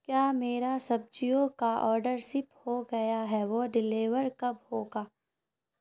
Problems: none marked